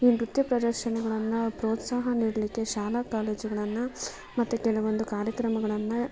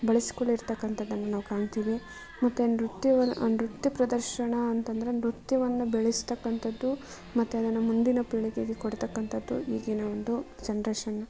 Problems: none marked